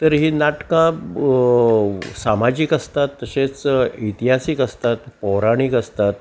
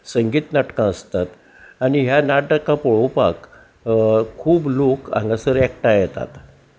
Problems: none marked